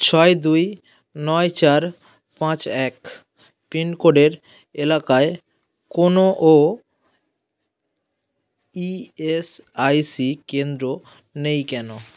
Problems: constant background noise